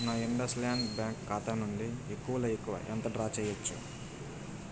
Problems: constant background noise, low volume